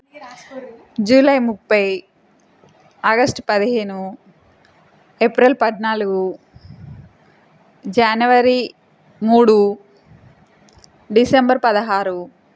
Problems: constant background noise